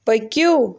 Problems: background sounds at intervals